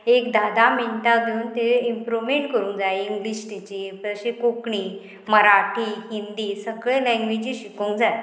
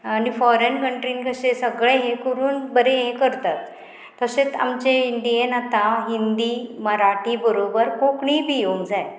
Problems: constant background noise